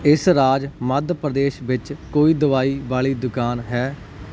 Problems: none marked